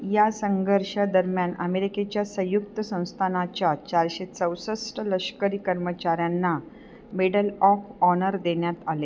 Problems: none marked